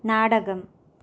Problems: none marked